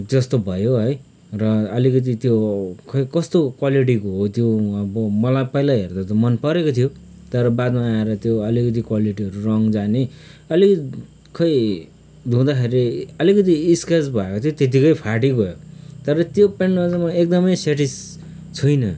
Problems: background sounds at intervals